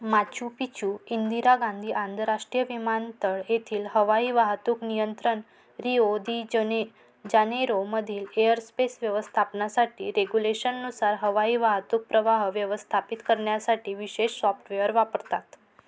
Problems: none marked